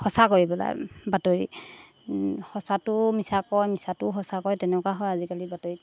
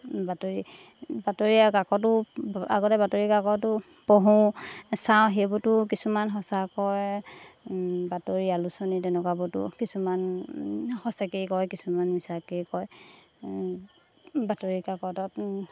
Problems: background sounds at intervals